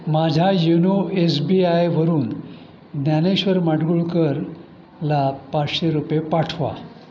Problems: constant background noise, continuous background conversations